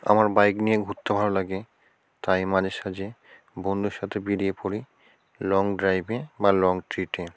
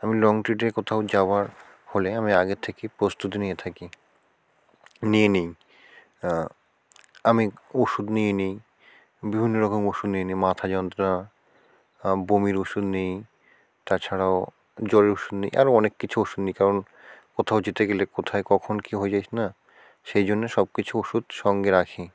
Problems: constant background noise